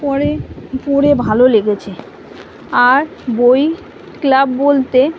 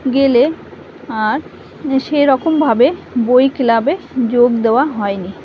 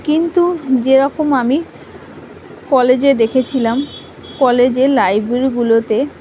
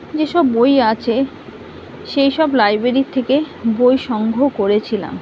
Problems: constant background noise